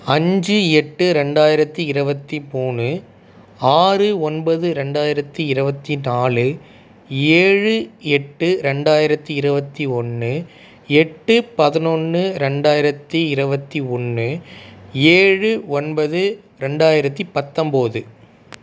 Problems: none marked